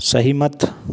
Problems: none marked